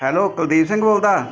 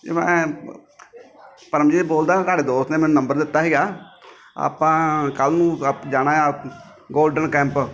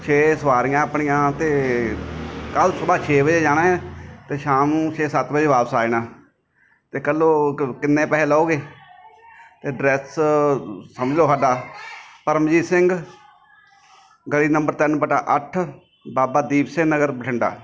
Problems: constant background noise, background conversations at intervals